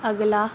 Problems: none marked